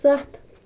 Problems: background sounds at intervals